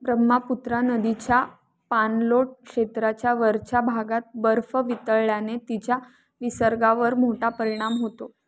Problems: background sounds at intervals